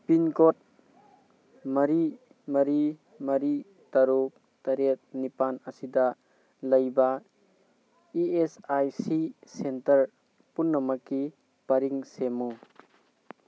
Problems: constant background noise